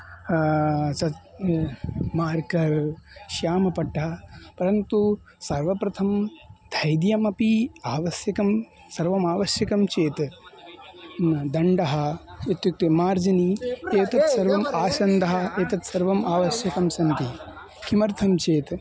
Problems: constant background noise, continuous background conversations